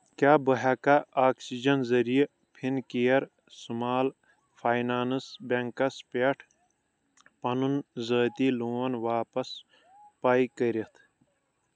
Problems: background sounds at intervals